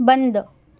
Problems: none marked